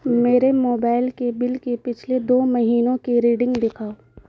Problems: constant background noise